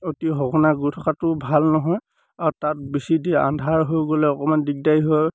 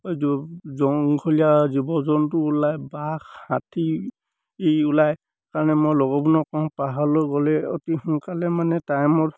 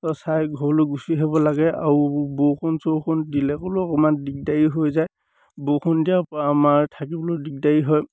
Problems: none marked